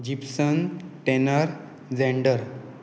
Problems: constant background noise